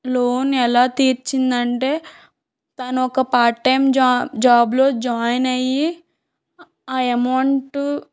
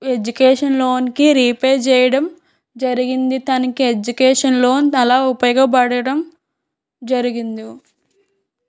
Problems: background sounds at intervals